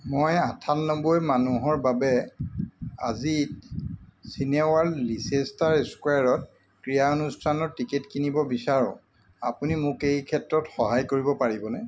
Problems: constant background noise